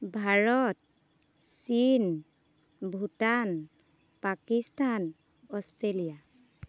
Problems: none marked